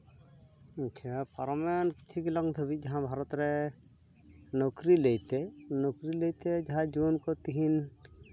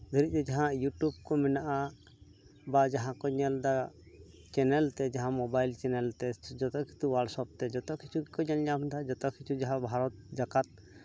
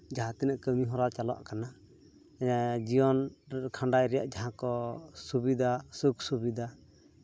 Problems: background sounds at intervals